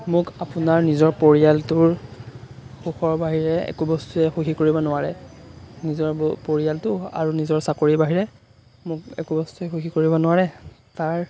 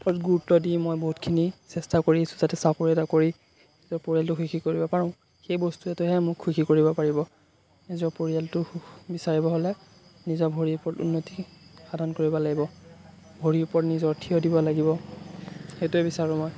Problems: constant background noise